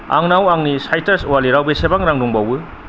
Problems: constant background noise, low volume